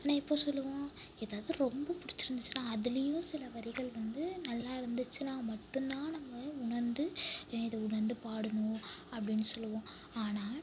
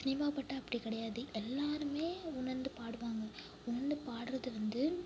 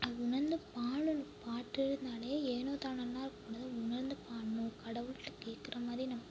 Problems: background sounds at intervals, low volume